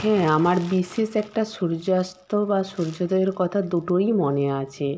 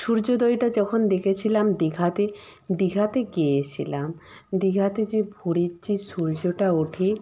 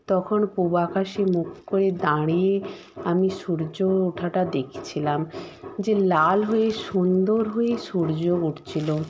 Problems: constant background noise